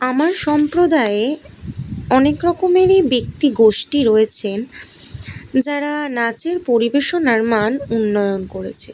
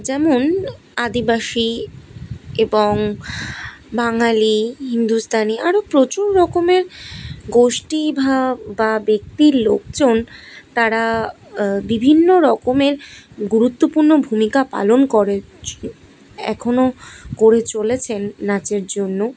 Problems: none marked